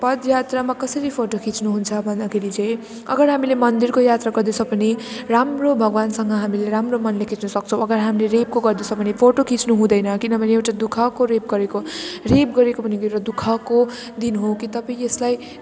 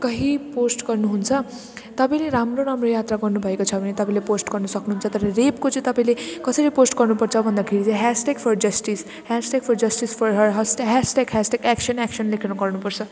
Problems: constant background noise